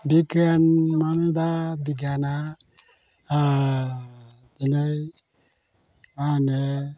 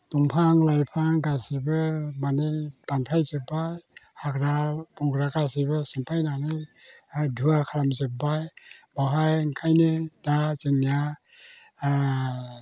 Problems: constant background noise